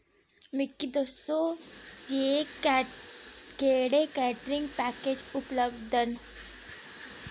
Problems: constant background noise